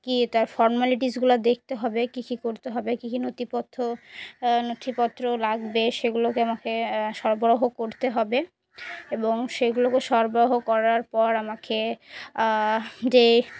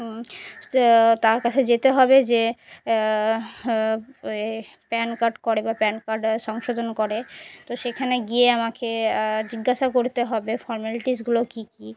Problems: none marked